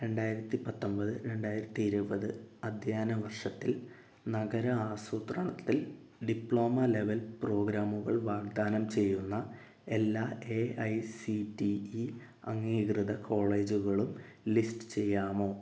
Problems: low volume